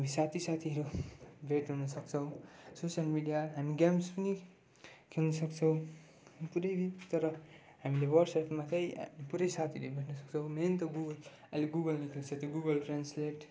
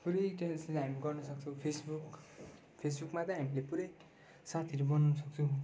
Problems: low volume